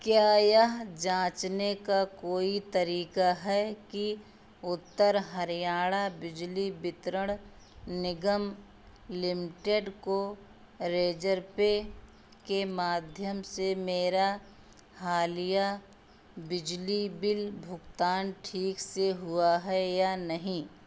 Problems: constant background noise